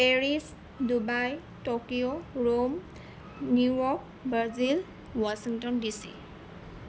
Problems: constant background noise